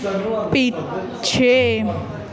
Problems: continuous background conversations